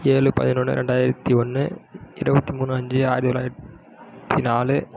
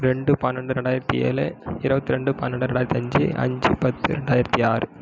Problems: low volume